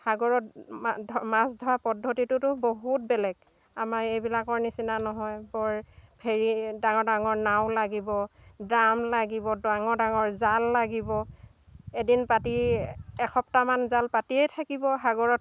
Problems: background sounds at intervals, background conversations at intervals